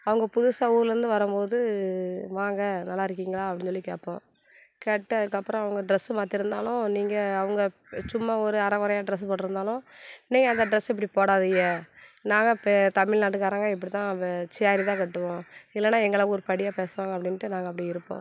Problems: background sounds at intervals